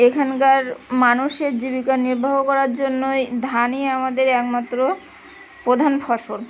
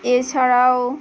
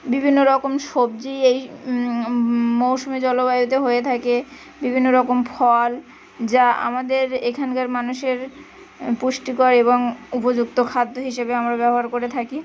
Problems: constant background noise